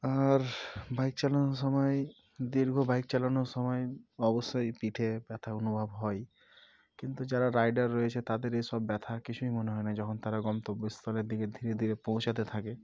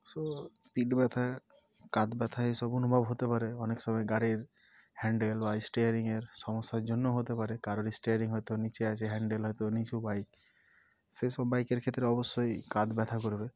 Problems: none marked